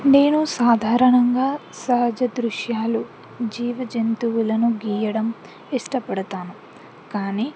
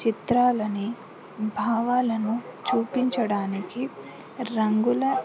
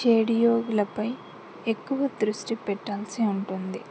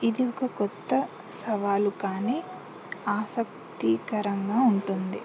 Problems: background sounds at intervals, continuous background conversations